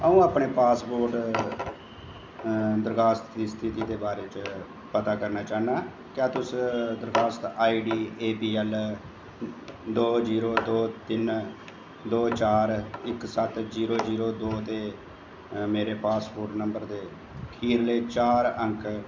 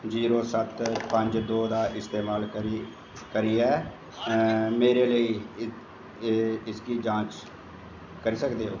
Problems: constant background noise, echo, low volume